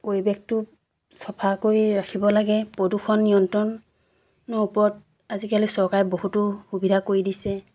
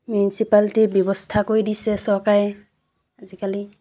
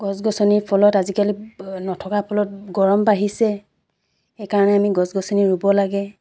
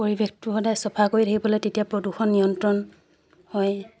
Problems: background sounds at intervals